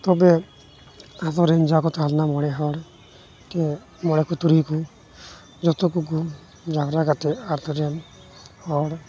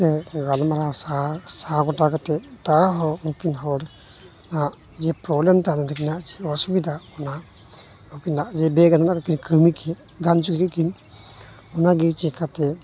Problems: constant background noise